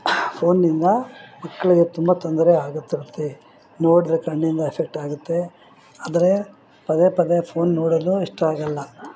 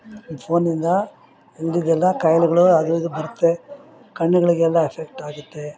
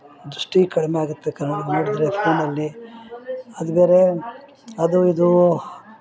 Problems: background conversations at intervals